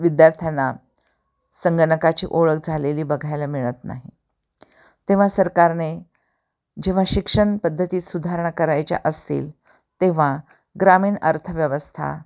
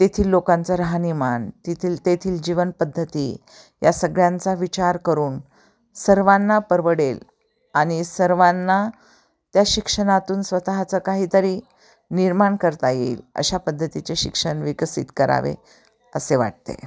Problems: constant background noise, background conversations at intervals